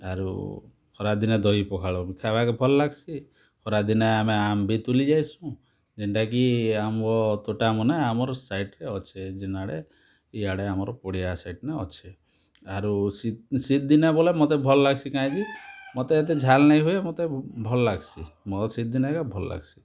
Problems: constant background noise